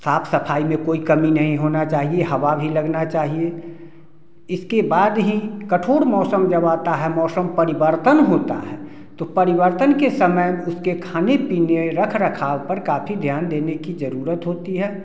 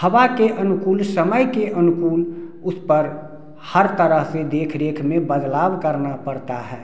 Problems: none marked